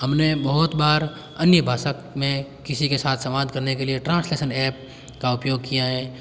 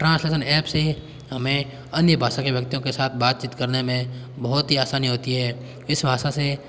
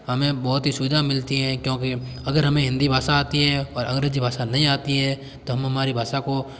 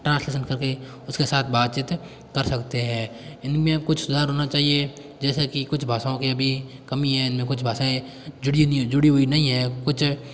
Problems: none marked